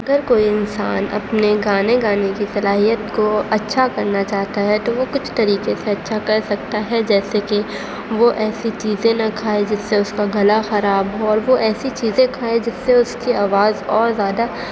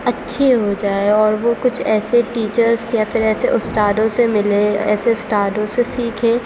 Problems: constant background noise